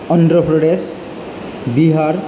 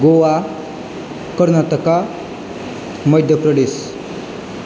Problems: low volume